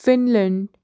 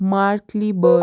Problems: constant background noise